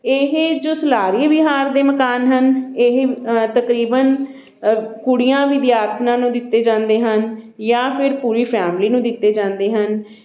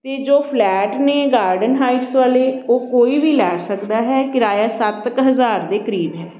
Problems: background sounds at intervals, background conversations at intervals